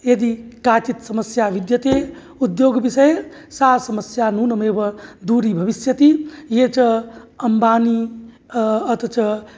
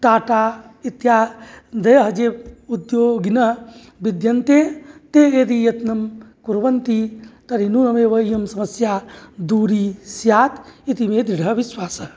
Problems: none marked